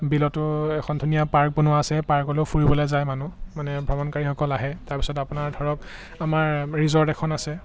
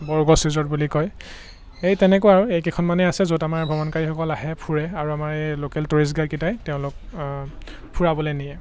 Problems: background sounds at intervals